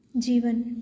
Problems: none marked